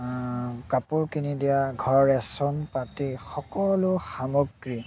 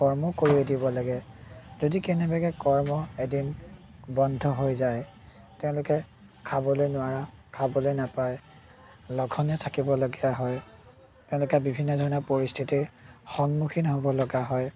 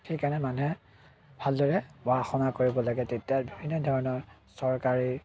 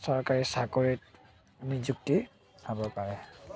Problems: constant background noise